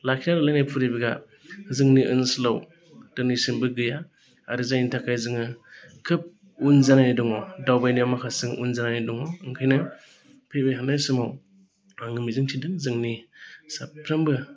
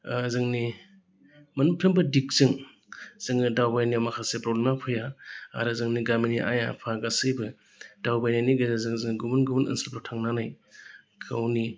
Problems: constant background noise